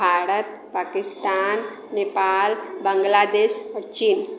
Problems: none marked